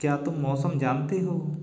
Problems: background sounds at intervals